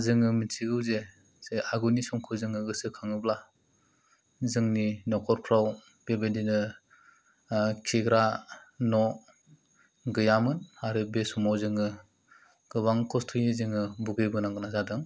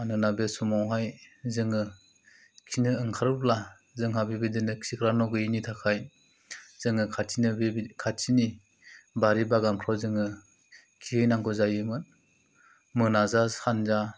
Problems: low volume